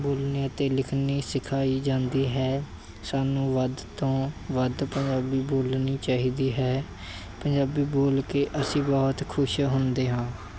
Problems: none marked